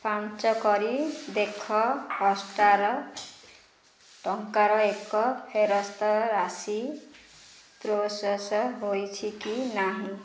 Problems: none marked